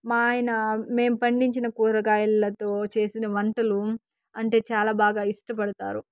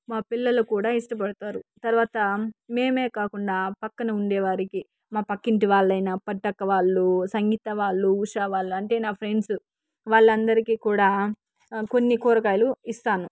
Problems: background sounds at intervals